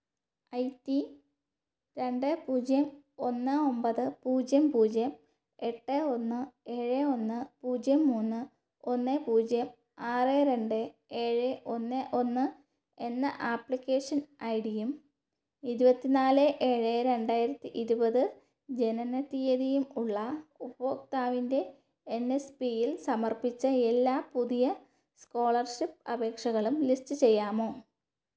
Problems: low volume